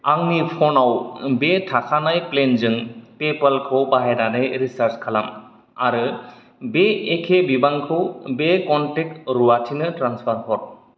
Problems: none marked